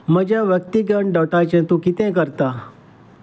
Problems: none marked